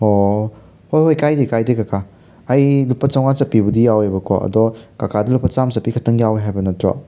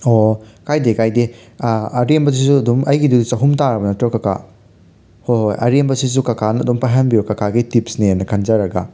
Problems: none marked